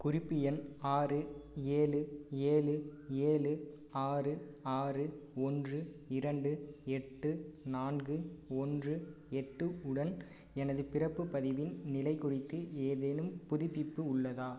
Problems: low volume